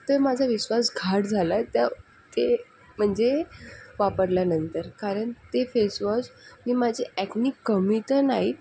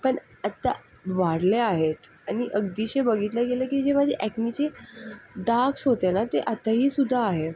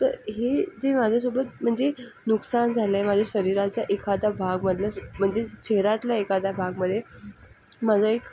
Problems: constant background noise